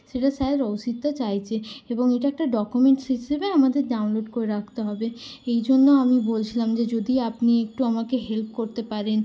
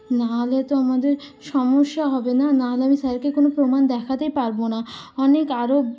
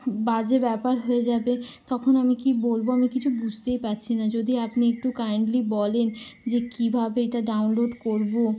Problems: constant background noise